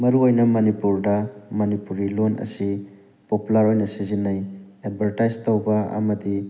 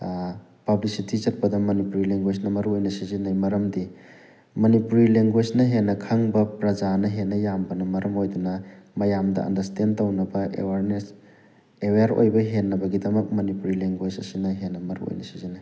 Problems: none marked